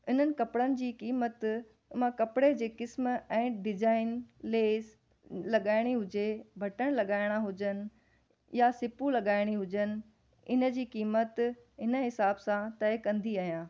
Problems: none marked